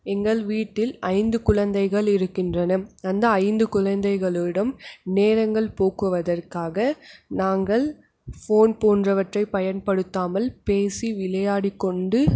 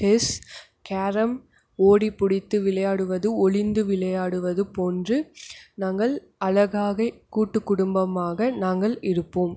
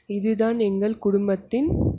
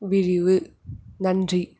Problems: none marked